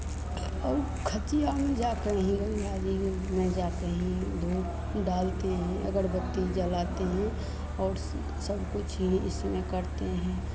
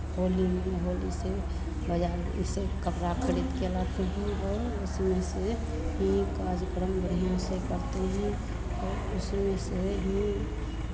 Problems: constant background noise, continuous background conversations